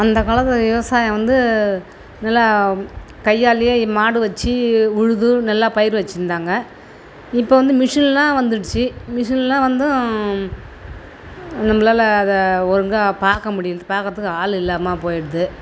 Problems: none marked